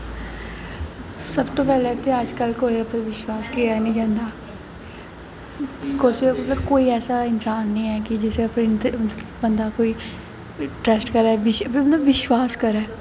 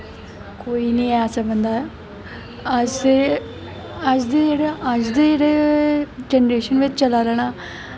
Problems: constant background noise